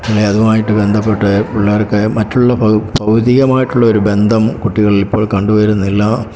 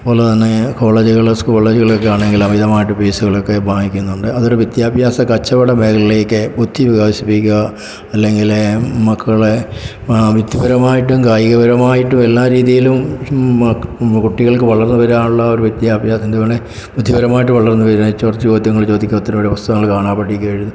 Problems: background sounds at intervals